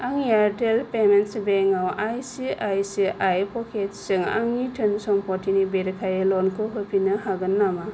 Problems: none marked